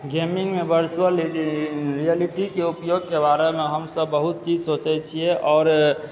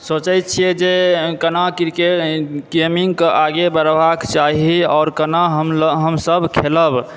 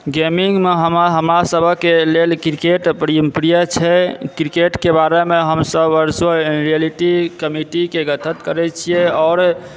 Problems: background sounds at intervals